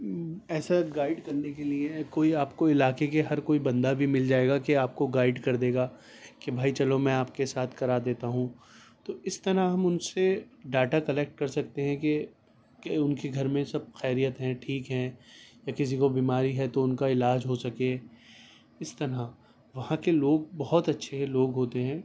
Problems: none marked